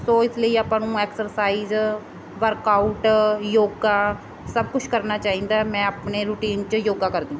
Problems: background sounds at intervals